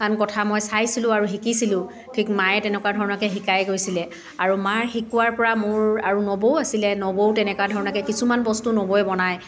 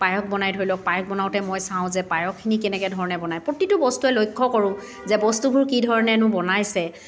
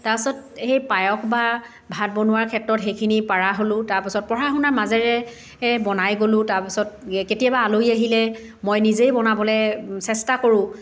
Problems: continuous background conversations